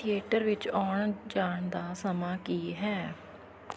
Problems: background conversations at intervals